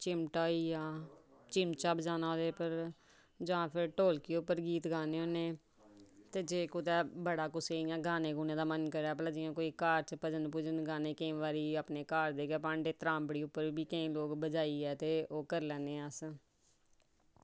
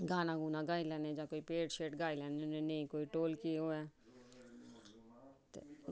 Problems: background sounds at intervals